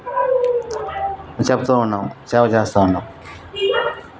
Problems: background sounds at intervals